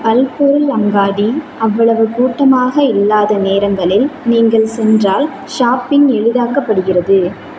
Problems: constant background noise